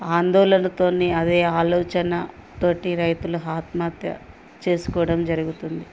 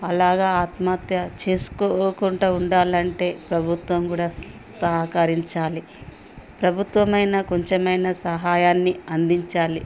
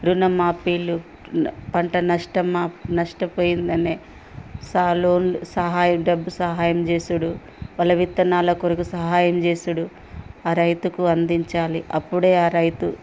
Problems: background sounds at intervals, background conversations at intervals